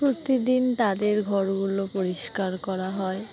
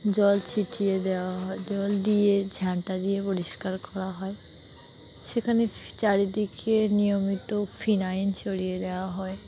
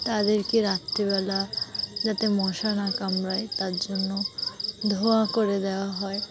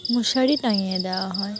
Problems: background sounds at intervals, continuous background conversations